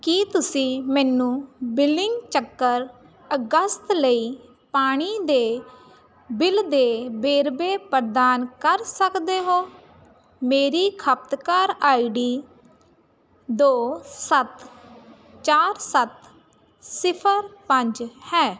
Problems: constant background noise